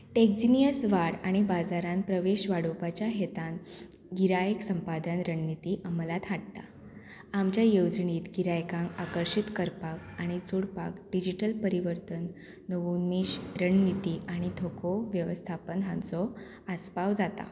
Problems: background sounds at intervals